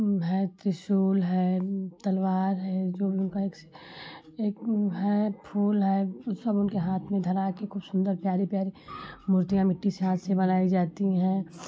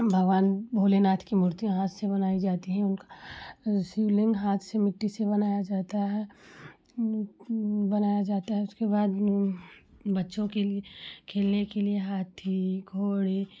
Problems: background sounds at intervals